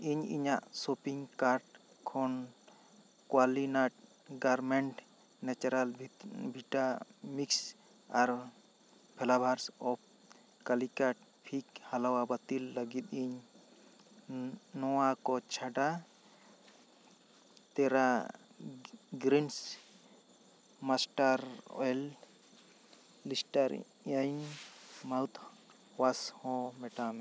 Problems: none marked